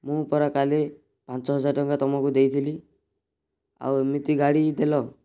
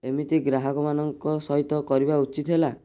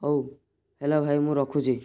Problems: none marked